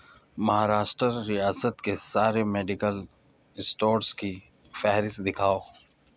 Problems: none marked